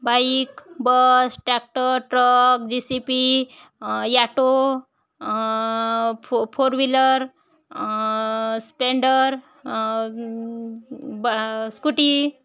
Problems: none marked